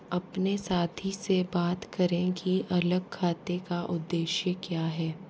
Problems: none marked